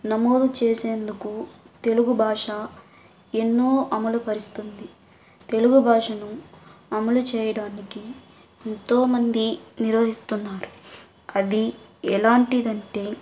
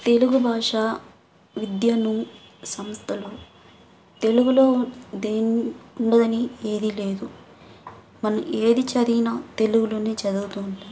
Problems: background sounds at intervals